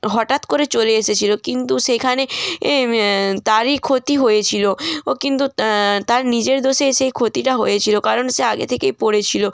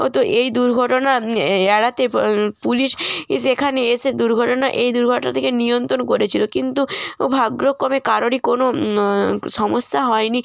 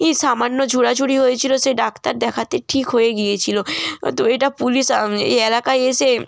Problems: none marked